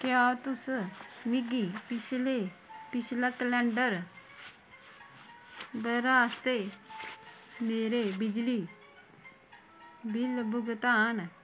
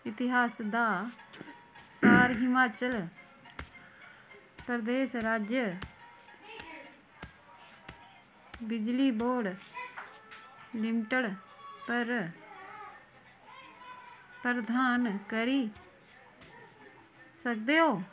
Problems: constant background noise